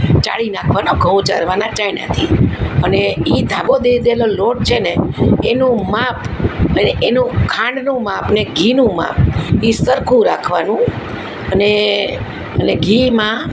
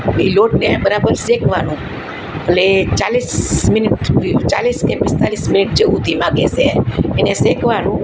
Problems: constant background noise